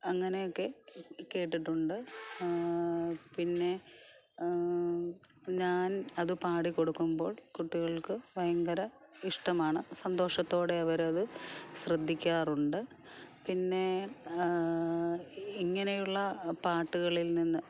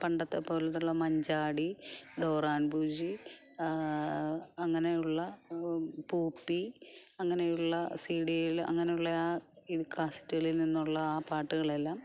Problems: none marked